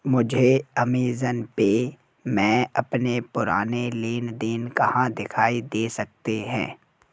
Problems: none marked